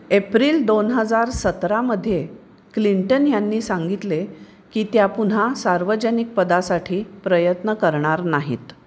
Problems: none marked